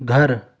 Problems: none marked